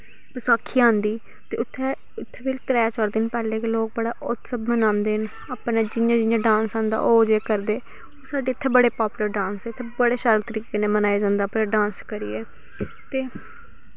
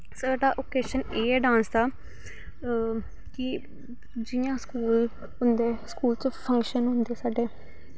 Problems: background sounds at intervals